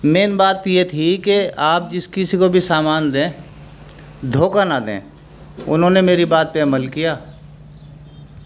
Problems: none marked